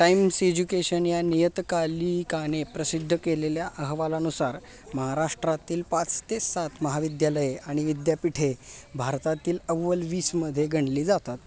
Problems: constant background noise, background conversations at intervals